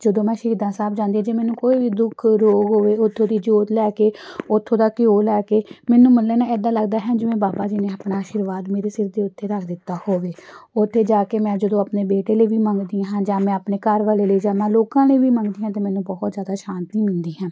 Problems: none marked